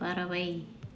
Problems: low volume